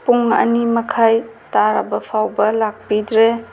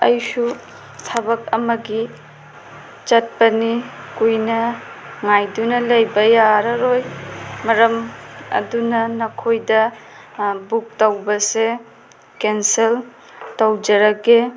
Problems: constant background noise